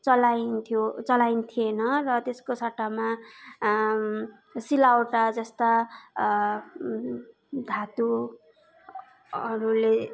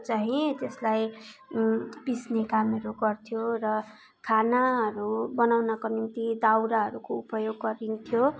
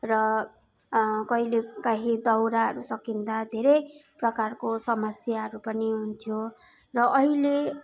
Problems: continuous background conversations